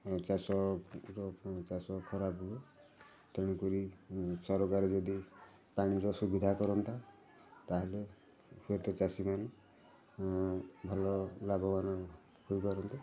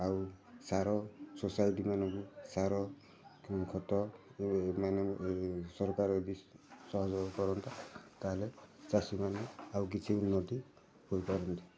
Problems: constant background noise, continuous background conversations